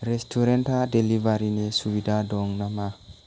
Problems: constant background noise